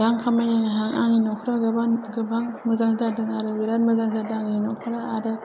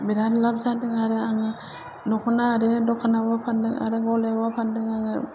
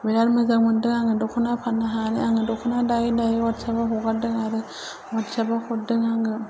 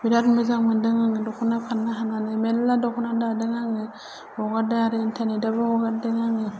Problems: low volume